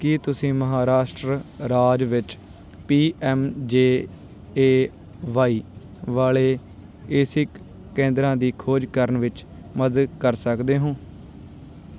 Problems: background sounds at intervals